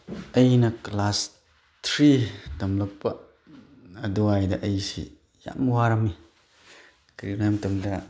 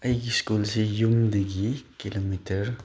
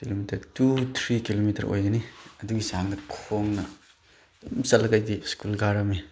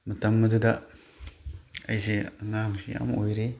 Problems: none marked